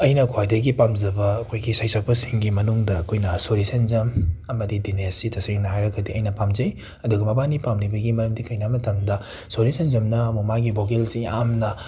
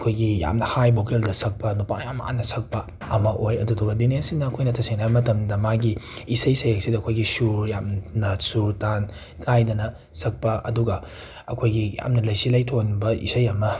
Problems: background sounds at intervals